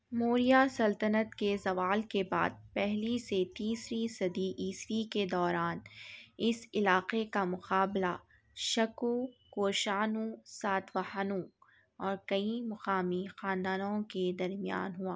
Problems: none marked